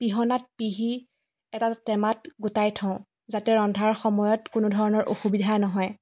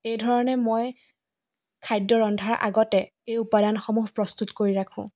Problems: background sounds at intervals